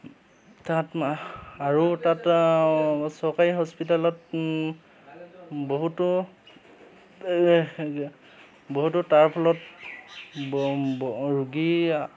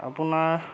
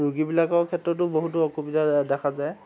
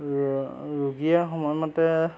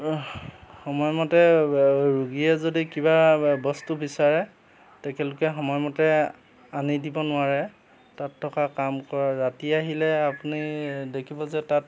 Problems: constant background noise, background conversations at intervals